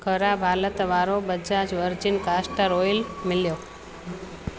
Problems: constant background noise